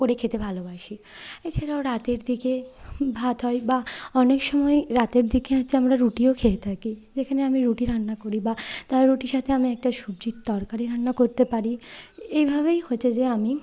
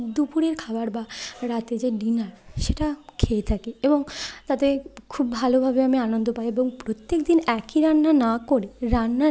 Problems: constant background noise